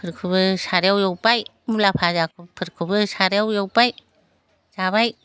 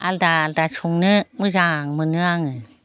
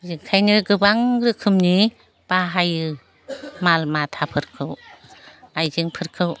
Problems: constant background noise